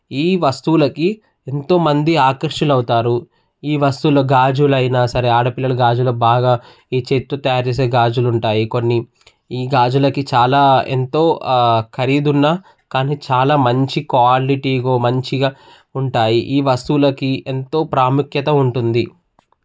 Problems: background conversations at intervals